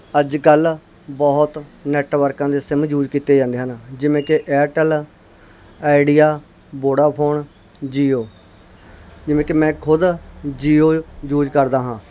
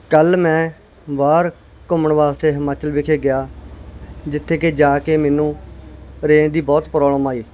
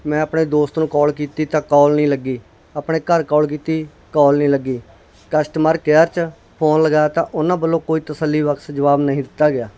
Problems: none marked